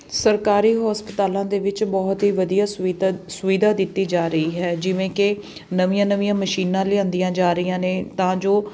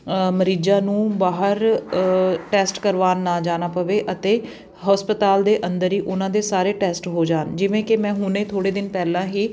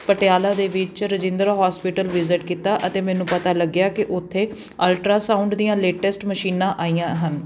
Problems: constant background noise